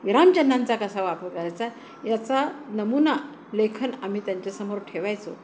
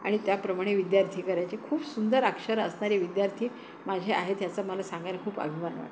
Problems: constant background noise